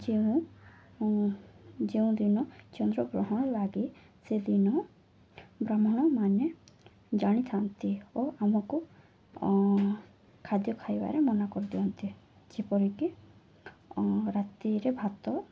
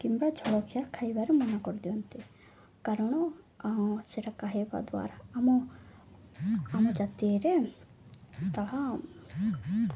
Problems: low volume